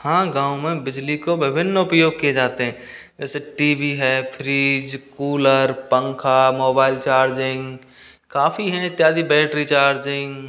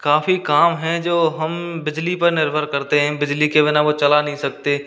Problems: constant background noise